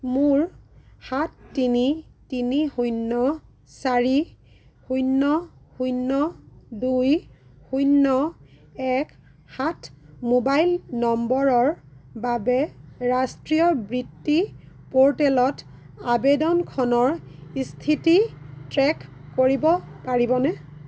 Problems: none marked